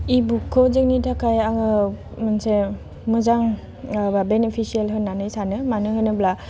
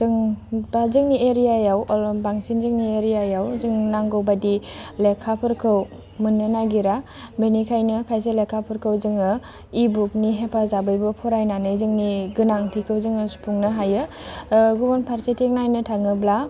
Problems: constant background noise